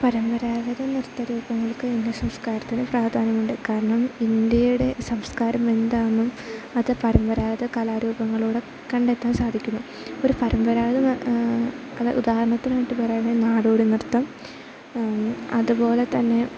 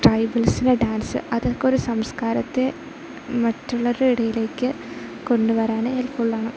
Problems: constant background noise